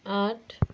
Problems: continuous background conversations